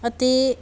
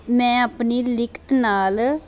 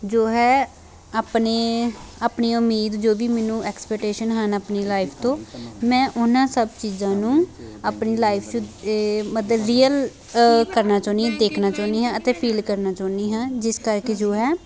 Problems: none marked